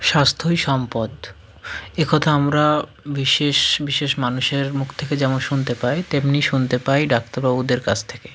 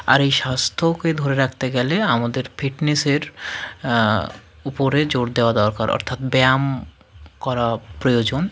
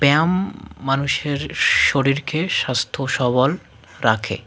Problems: none marked